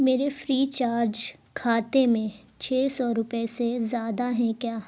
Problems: none marked